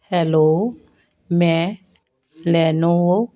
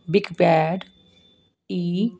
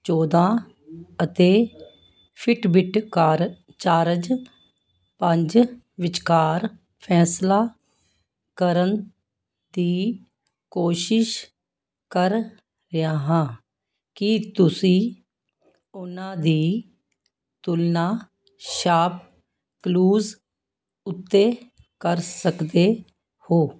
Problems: none marked